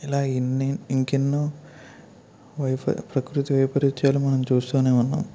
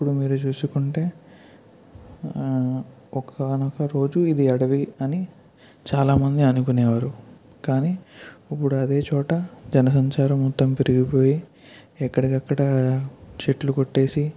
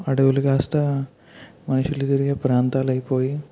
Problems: none marked